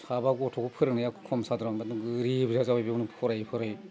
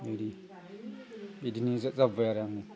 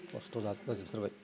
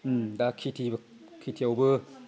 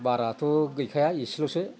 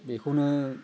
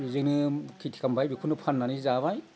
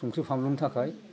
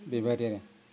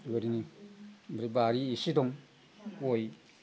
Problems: constant background noise